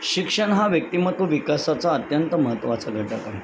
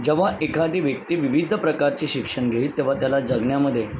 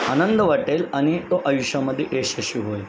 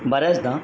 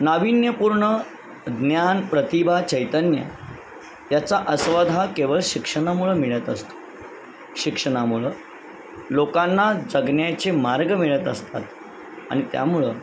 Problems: constant background noise, background conversations at intervals